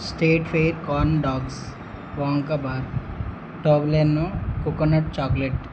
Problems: constant background noise